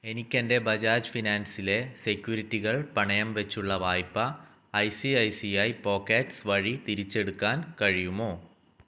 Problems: low volume